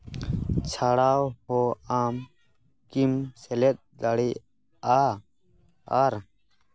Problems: background sounds at intervals